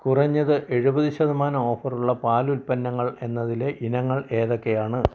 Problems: low volume